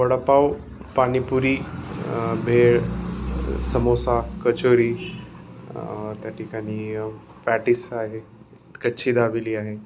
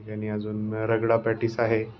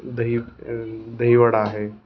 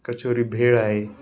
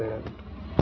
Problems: constant background noise